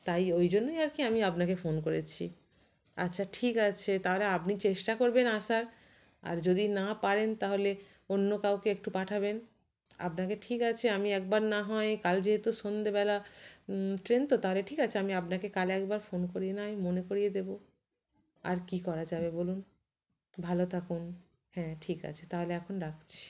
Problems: constant background noise